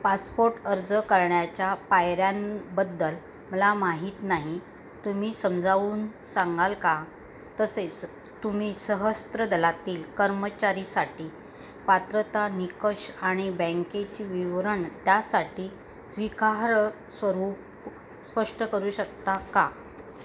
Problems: constant background noise